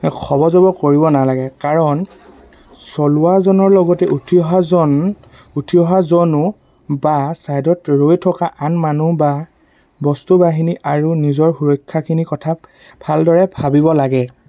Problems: constant background noise